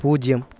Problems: none marked